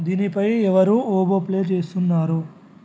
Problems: none marked